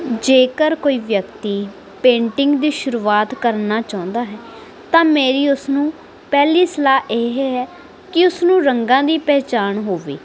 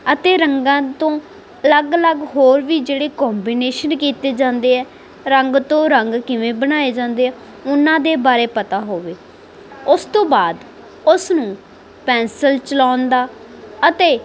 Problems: constant background noise